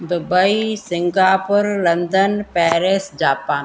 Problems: constant background noise